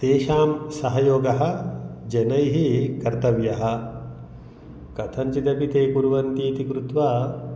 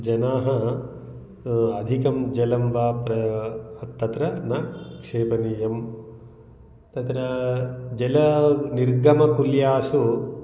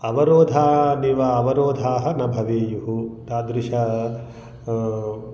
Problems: none marked